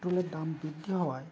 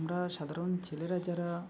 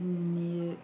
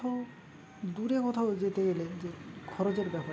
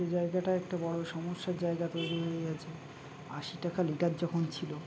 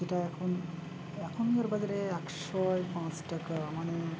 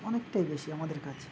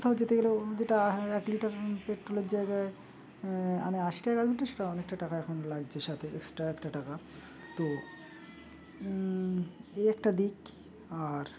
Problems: constant background noise